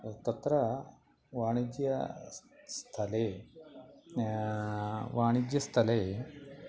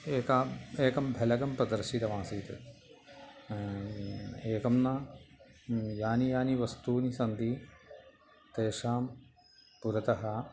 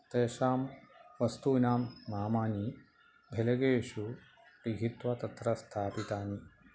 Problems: background sounds at intervals